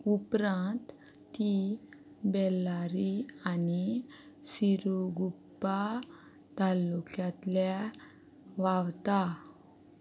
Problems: none marked